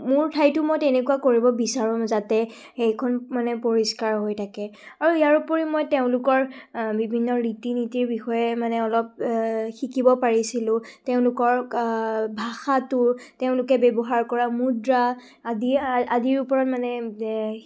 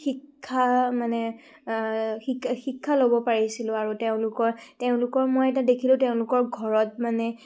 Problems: none marked